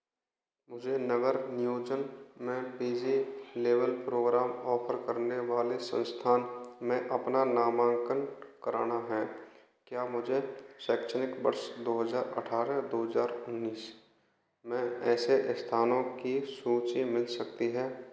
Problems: echo